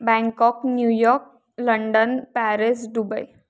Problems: background sounds at intervals